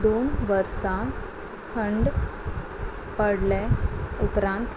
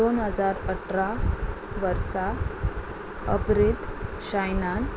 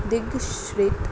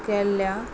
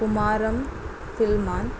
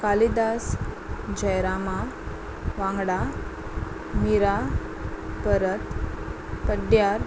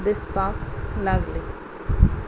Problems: constant background noise